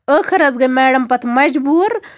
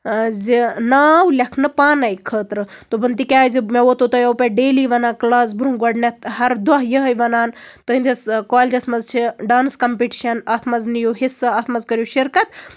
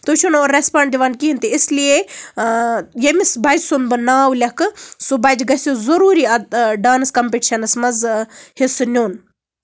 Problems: none marked